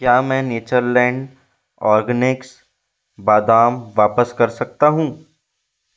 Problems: background sounds at intervals